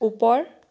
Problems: none marked